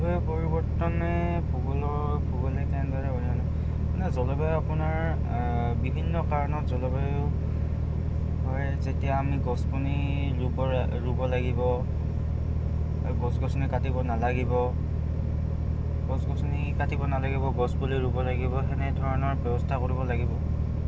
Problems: constant background noise